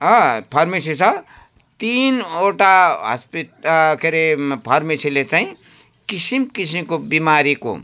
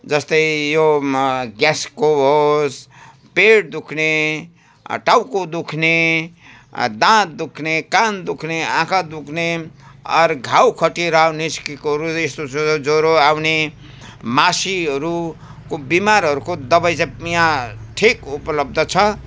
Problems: background sounds at intervals